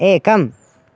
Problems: none marked